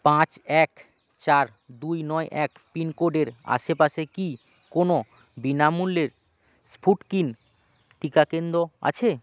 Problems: constant background noise